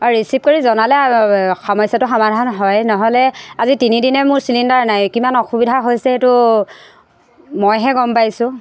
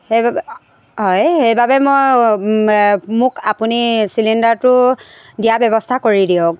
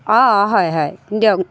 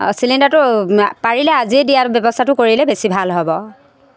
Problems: constant background noise